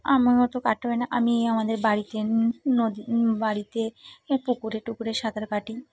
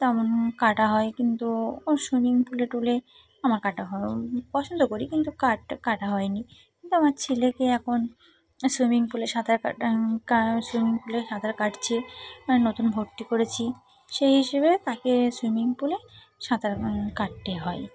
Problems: constant background noise, background conversations at intervals